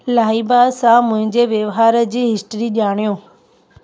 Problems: constant background noise